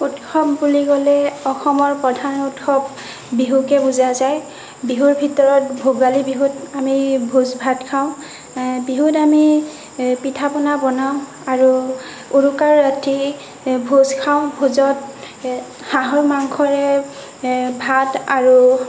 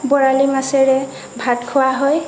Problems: constant background noise